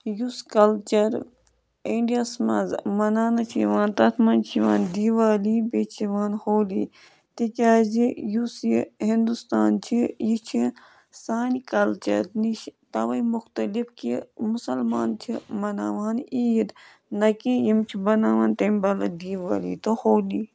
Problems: background sounds at intervals